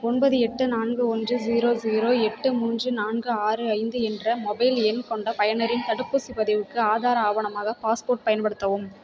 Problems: continuous background conversations